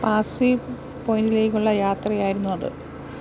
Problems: none marked